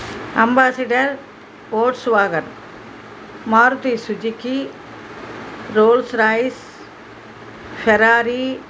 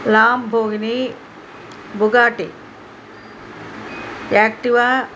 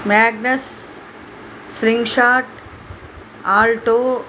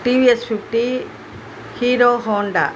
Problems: constant background noise